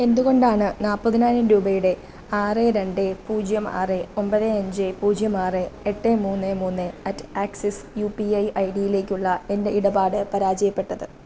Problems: none marked